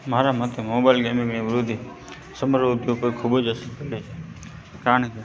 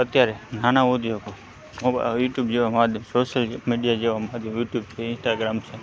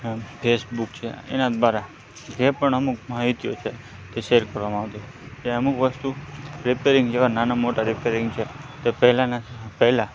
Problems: background sounds at intervals